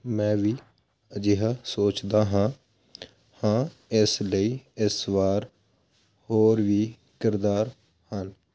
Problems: none marked